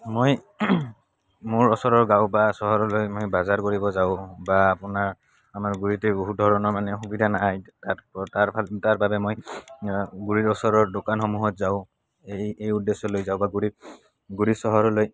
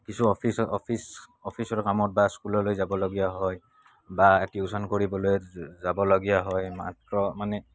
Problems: constant background noise